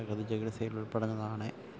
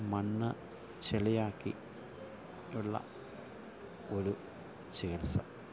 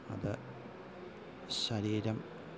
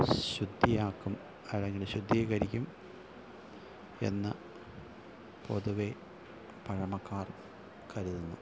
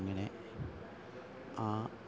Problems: constant background noise, low volume